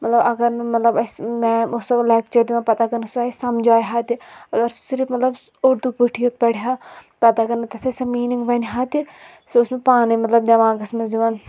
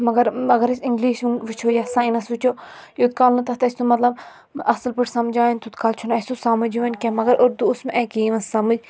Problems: none marked